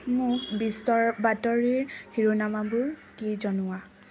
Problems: constant background noise